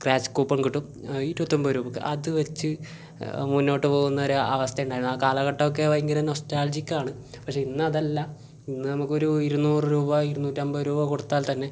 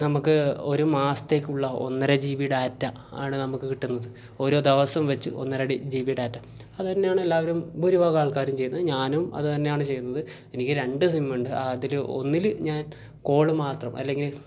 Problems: none marked